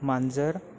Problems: background sounds at intervals